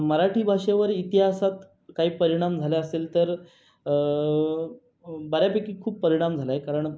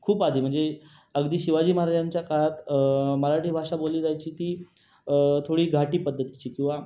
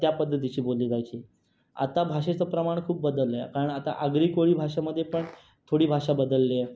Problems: constant background noise, background conversations at intervals